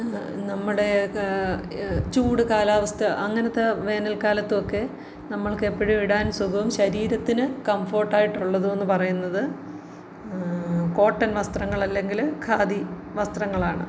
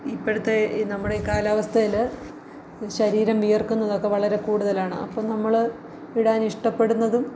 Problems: none marked